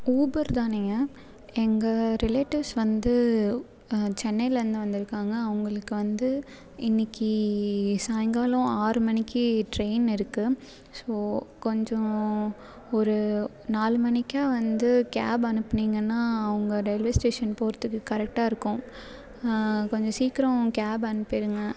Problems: background sounds at intervals, background conversations at intervals